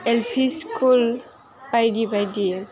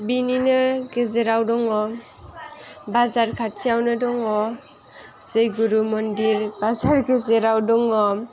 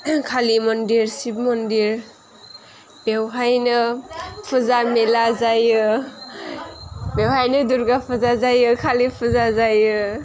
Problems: background sounds at intervals